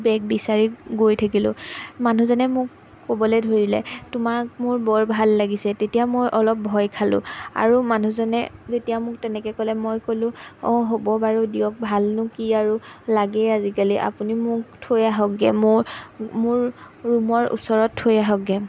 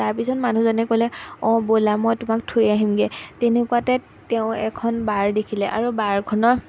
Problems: background sounds at intervals